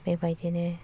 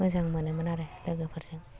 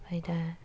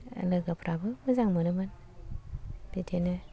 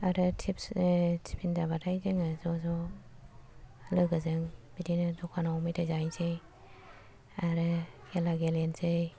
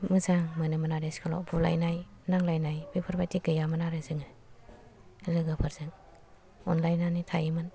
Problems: low volume